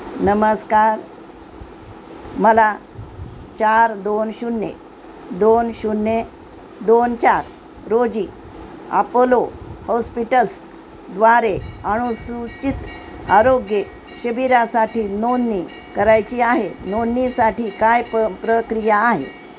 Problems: constant background noise